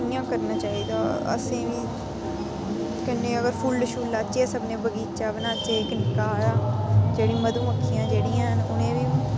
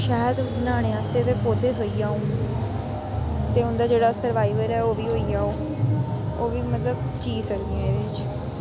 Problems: none marked